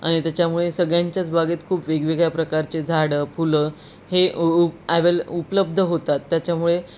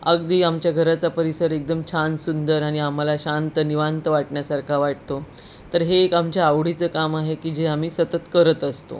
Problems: constant background noise